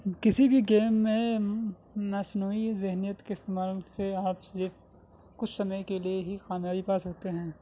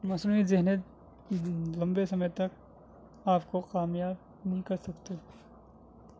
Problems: constant background noise